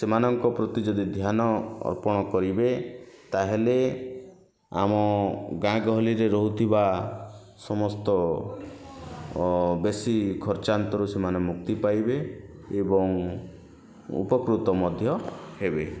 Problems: constant background noise